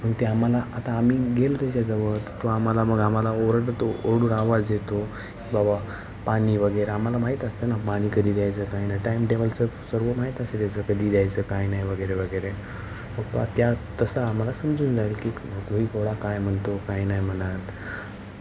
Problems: constant background noise, continuous background conversations